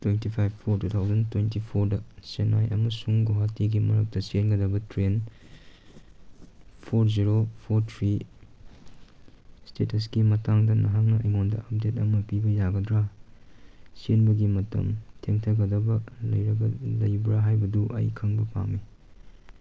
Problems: none marked